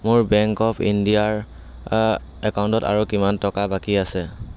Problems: none marked